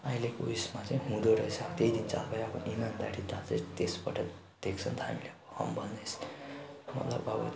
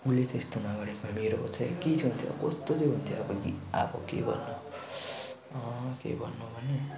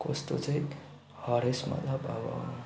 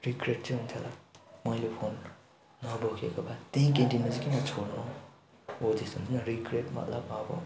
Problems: background sounds at intervals, background conversations at intervals